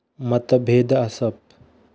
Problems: none marked